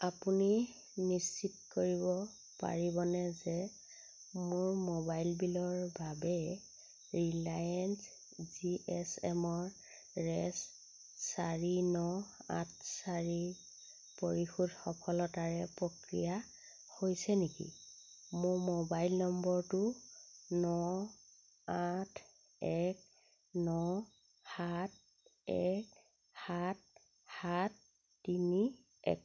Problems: constant background noise